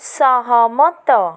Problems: none marked